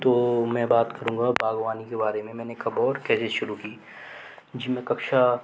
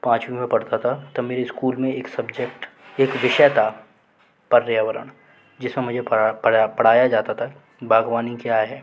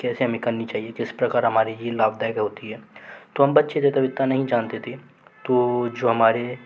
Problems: none marked